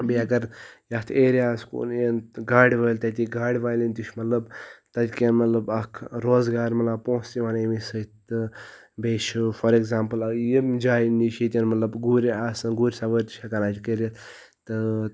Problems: background sounds at intervals